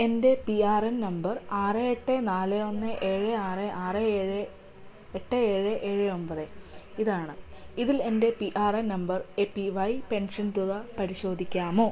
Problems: none marked